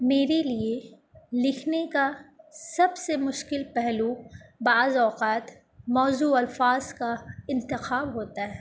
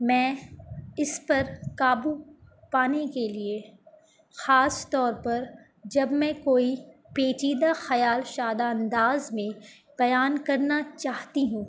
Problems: none marked